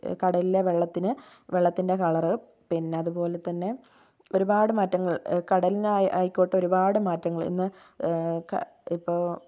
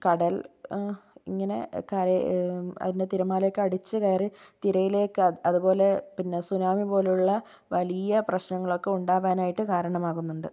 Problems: none marked